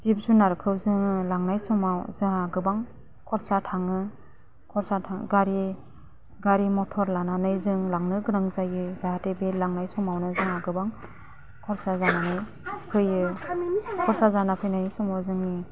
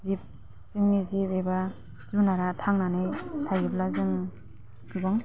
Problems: low volume